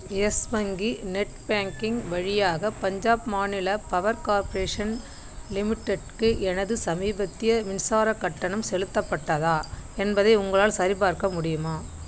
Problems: constant background noise